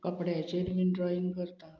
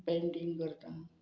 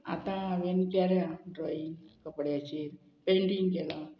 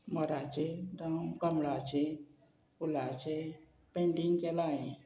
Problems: none marked